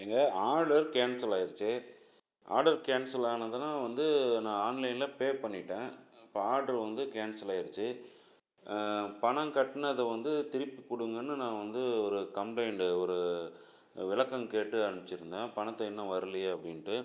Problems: none marked